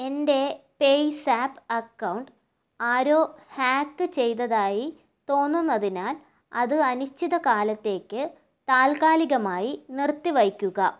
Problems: none marked